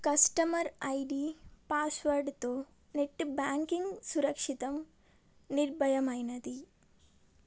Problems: none marked